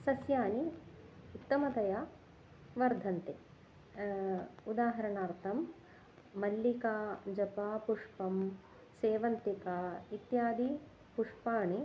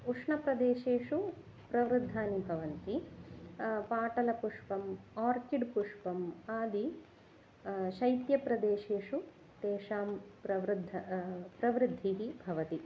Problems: none marked